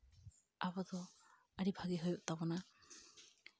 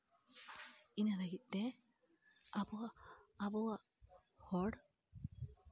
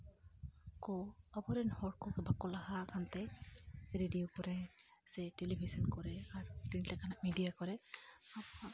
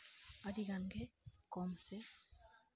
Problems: low volume